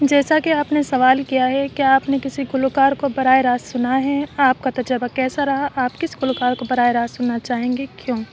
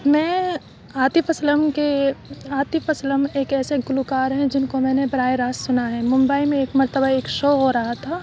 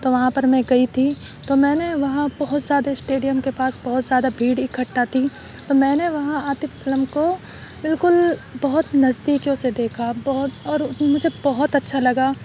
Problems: none marked